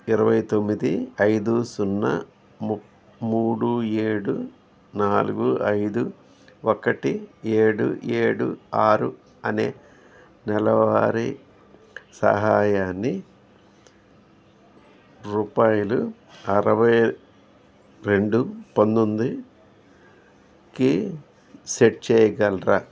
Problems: background conversations at intervals